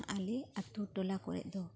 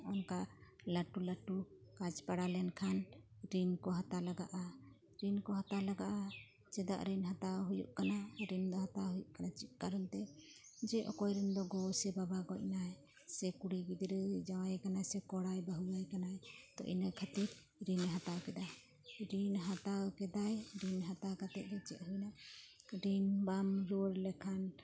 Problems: constant background noise